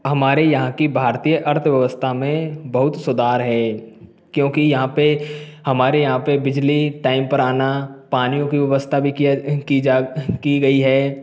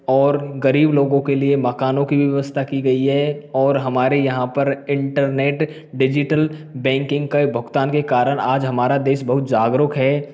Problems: none marked